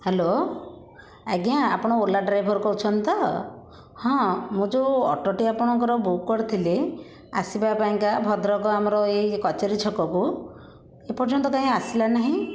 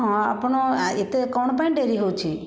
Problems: constant background noise, continuous background conversations